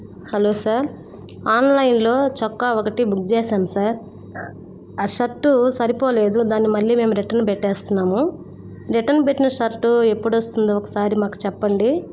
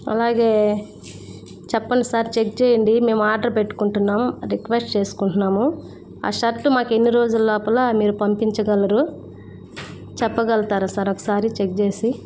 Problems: constant background noise